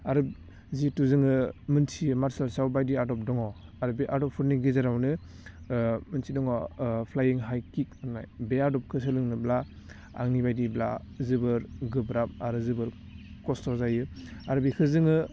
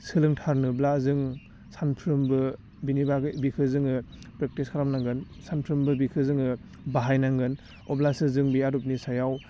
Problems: constant background noise